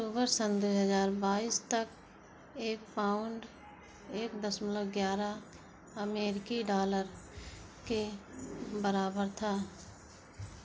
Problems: constant background noise